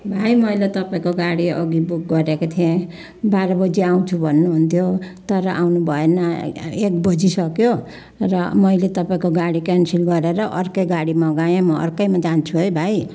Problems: continuous background conversations